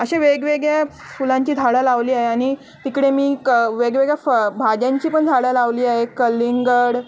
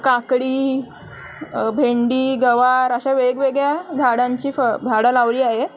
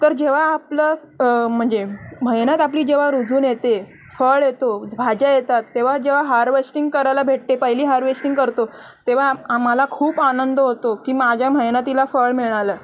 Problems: none marked